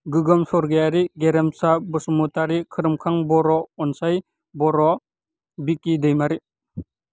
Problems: none marked